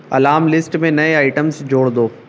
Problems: none marked